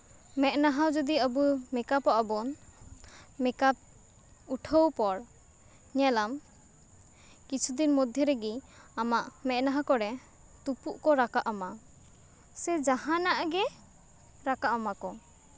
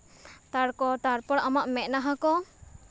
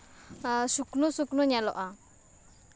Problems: none marked